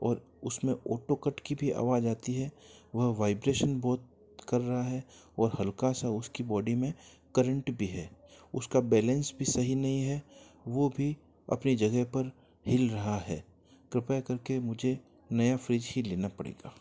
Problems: none marked